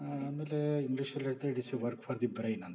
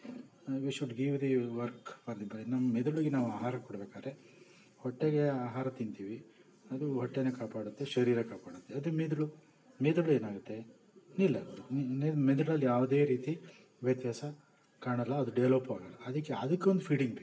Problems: background sounds at intervals